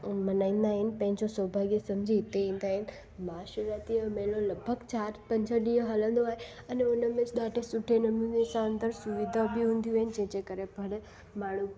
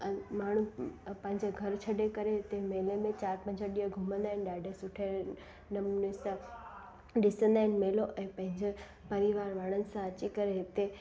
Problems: constant background noise, echo